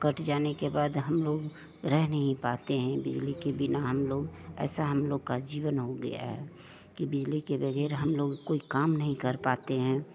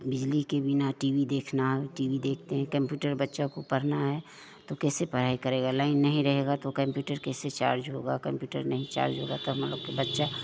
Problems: none marked